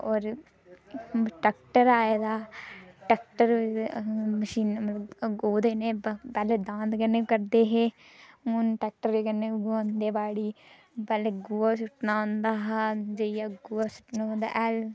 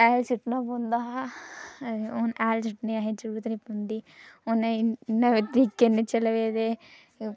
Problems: none marked